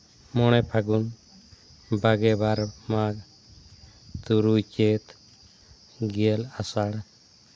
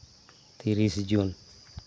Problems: constant background noise